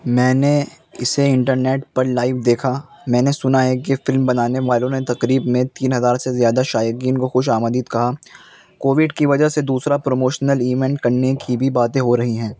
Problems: constant background noise